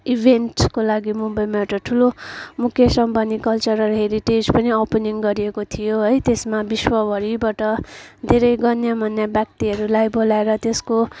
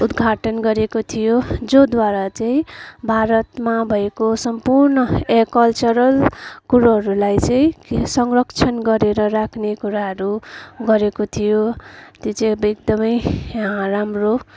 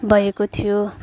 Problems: constant background noise, background conversations at intervals